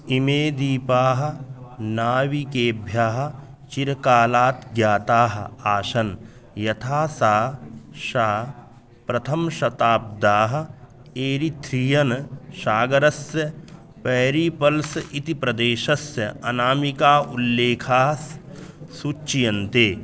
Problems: constant background noise, background conversations at intervals